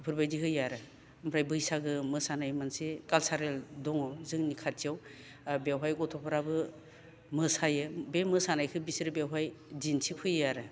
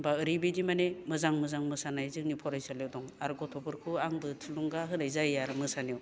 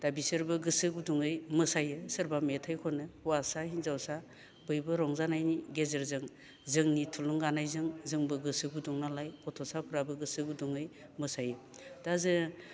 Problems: low volume